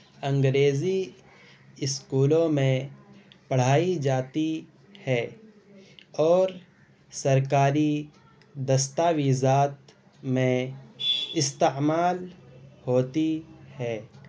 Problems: constant background noise